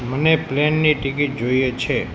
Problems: constant background noise